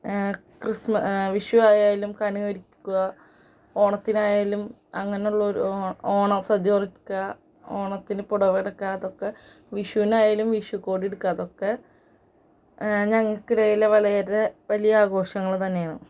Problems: none marked